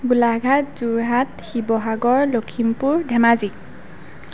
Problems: none marked